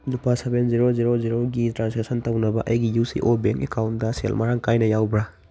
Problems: none marked